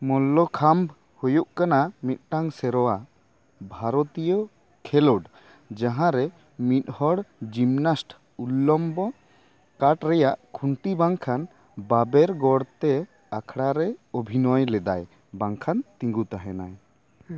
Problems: background sounds at intervals, background conversations at intervals